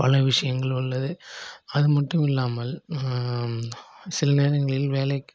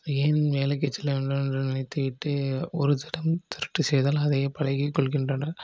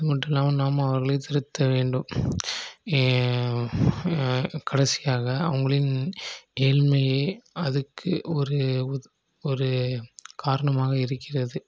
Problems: none marked